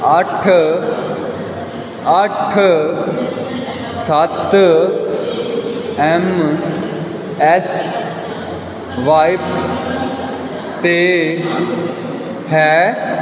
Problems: constant background noise